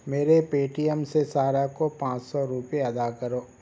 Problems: background sounds at intervals